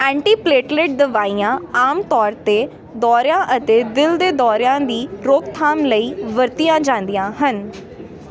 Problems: constant background noise